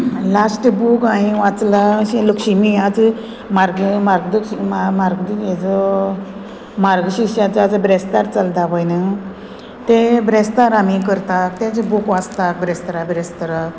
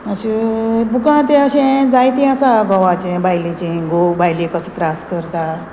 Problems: constant background noise